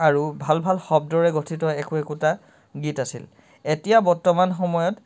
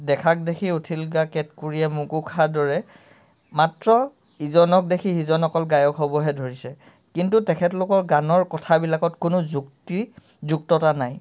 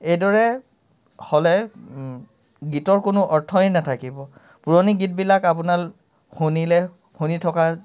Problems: background sounds at intervals